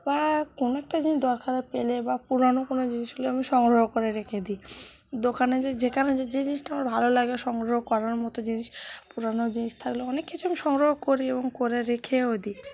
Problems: none marked